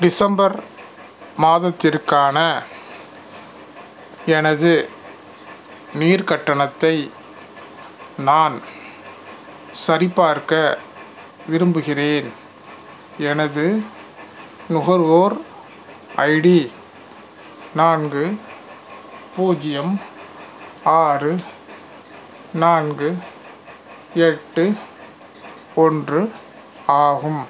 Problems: constant background noise